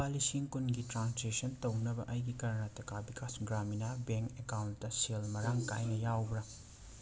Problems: constant background noise, background conversations at intervals, low volume